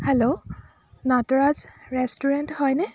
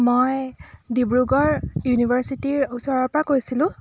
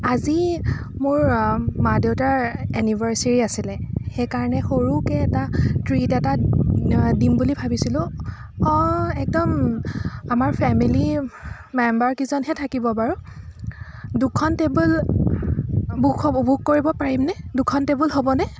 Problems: continuous background conversations